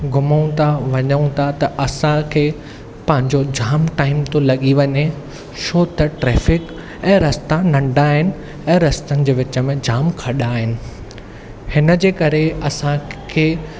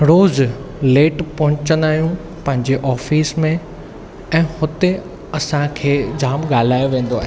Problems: background sounds at intervals